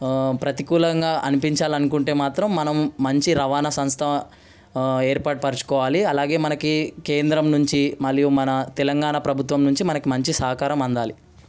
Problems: background sounds at intervals